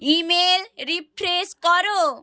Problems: none marked